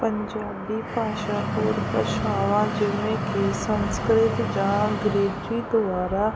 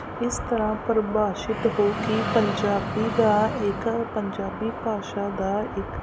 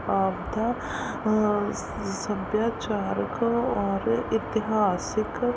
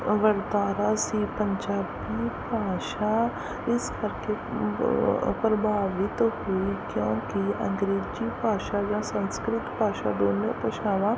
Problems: none marked